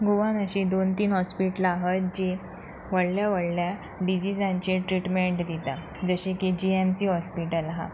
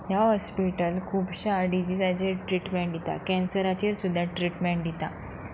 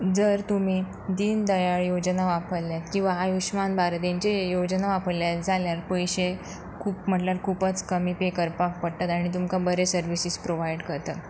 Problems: constant background noise